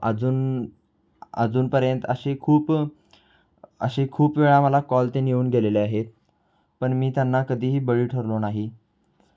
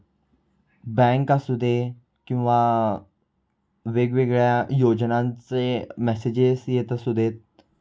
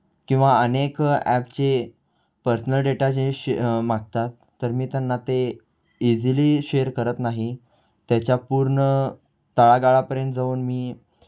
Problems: constant background noise, background conversations at intervals